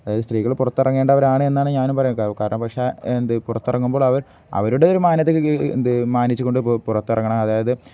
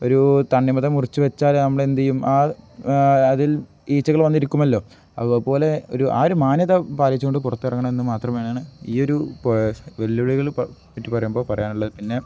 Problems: none marked